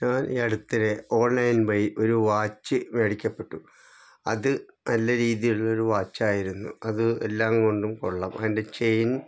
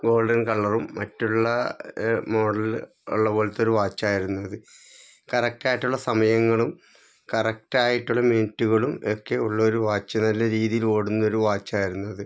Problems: none marked